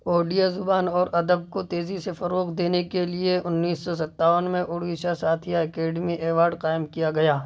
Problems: none marked